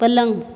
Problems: constant background noise